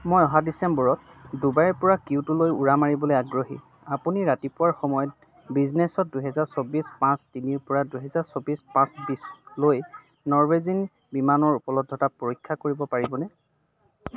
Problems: none marked